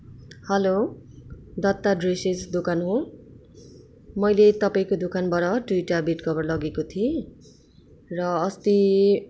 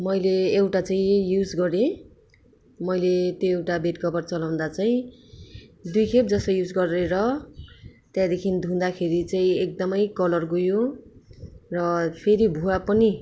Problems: none marked